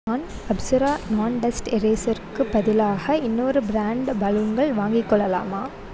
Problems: continuous background conversations